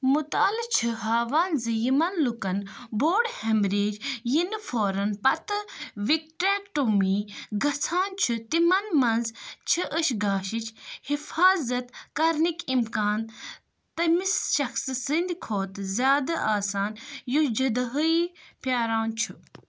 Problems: background sounds at intervals